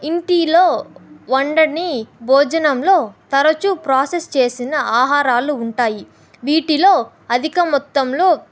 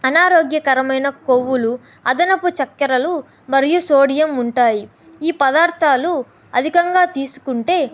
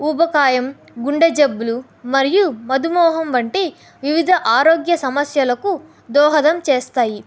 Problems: none marked